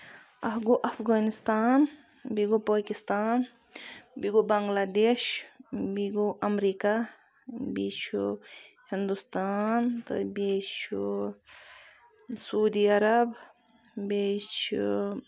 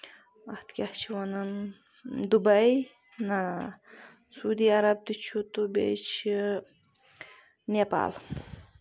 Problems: constant background noise